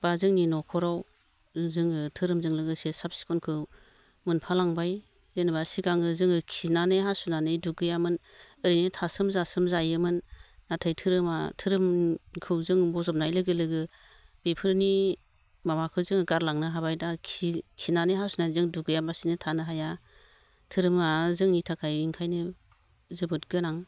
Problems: low volume